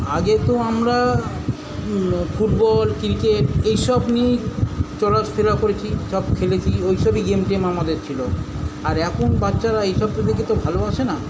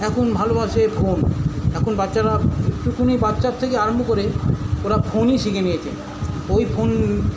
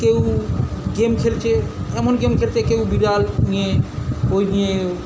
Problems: none marked